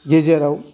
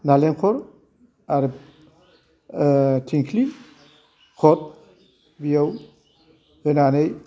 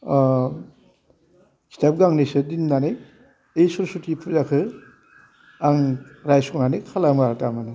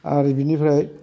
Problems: constant background noise